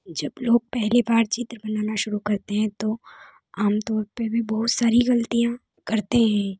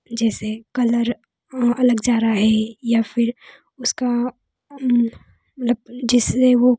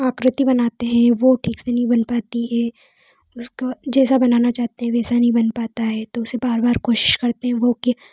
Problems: none marked